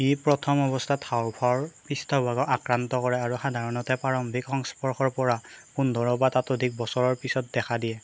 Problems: background sounds at intervals